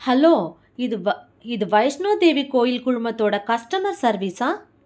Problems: none marked